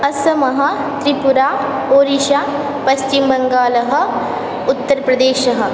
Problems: constant background noise